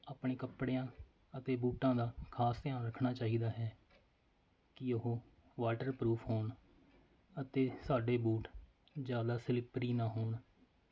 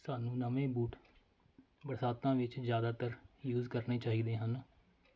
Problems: none marked